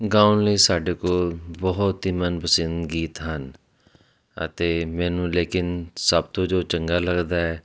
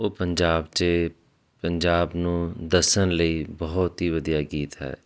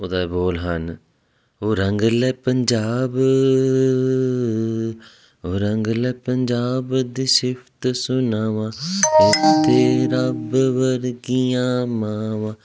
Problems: constant background noise